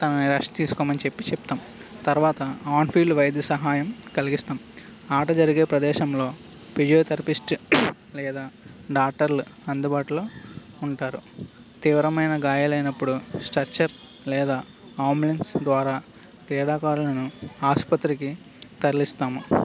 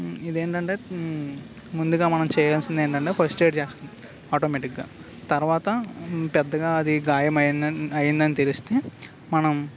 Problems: background sounds at intervals